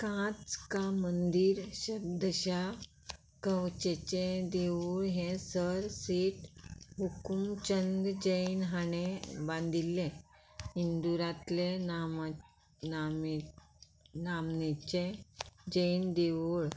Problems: background sounds at intervals